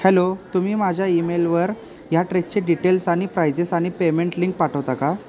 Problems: none marked